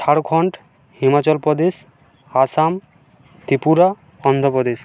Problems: constant background noise